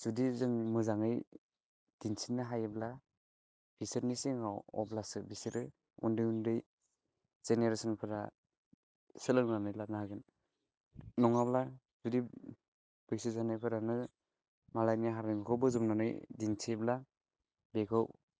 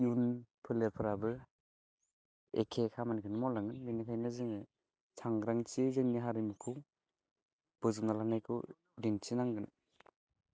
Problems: none marked